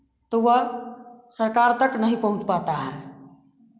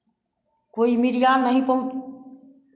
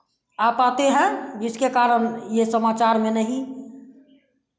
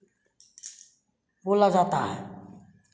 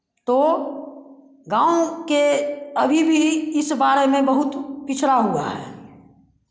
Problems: constant background noise